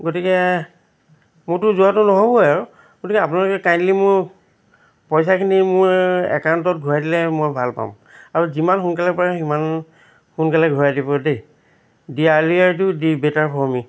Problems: constant background noise, background conversations at intervals